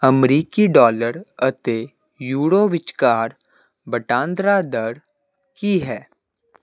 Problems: constant background noise